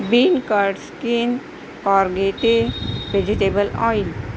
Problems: constant background noise